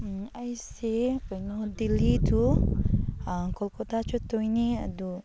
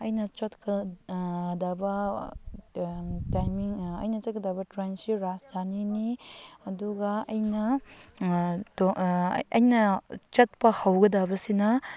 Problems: background sounds at intervals